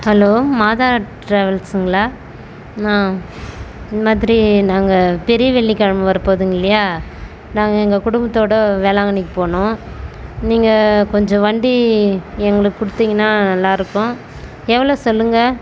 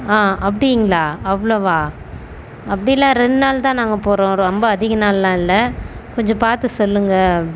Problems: constant background noise